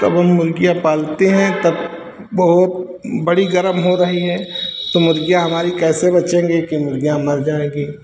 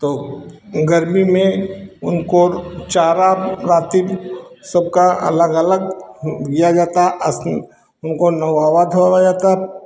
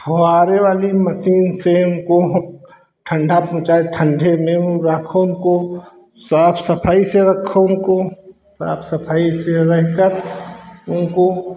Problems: constant background noise